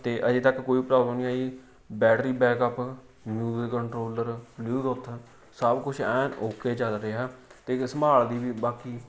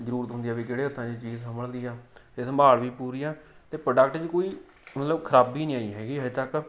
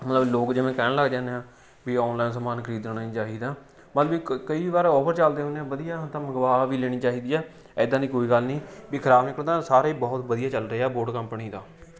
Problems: none marked